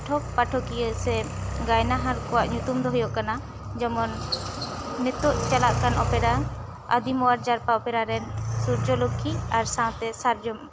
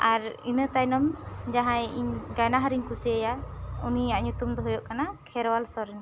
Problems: background sounds at intervals